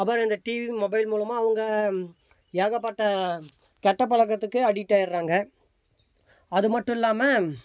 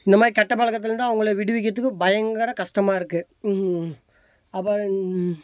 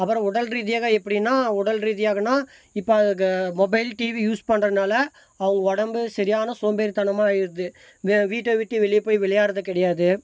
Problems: constant background noise